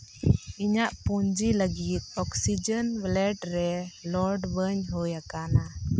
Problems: background sounds at intervals